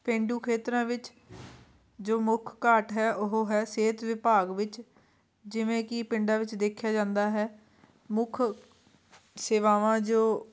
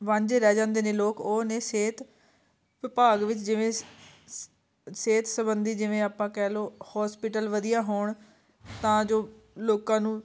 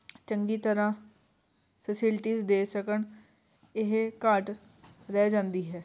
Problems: constant background noise